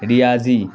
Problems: constant background noise